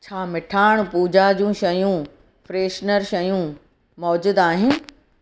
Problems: none marked